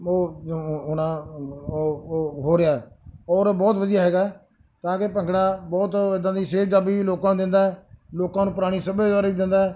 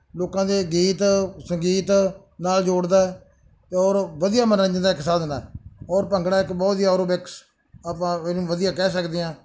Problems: none marked